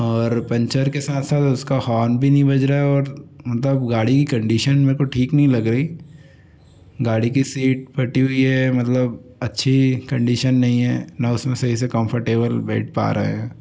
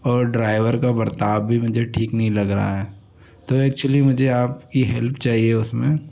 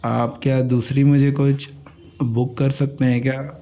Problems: constant background noise